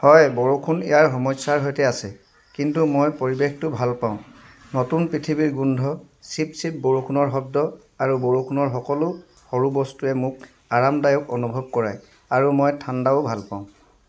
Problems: background sounds at intervals